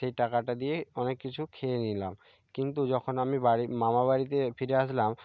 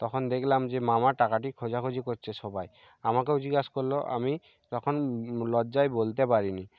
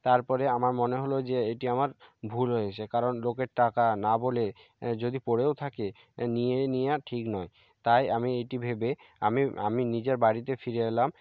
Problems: none marked